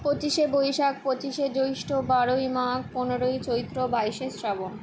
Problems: none marked